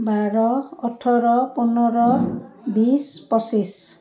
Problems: continuous background conversations